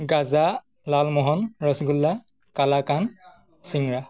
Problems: none marked